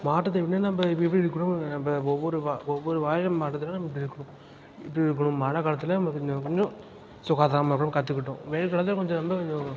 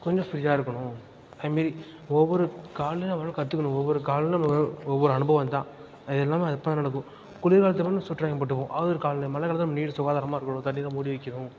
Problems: background sounds at intervals